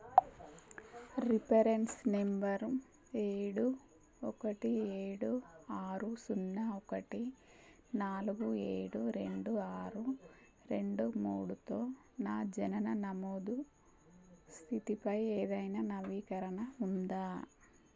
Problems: constant background noise